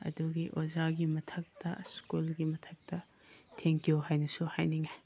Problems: background sounds at intervals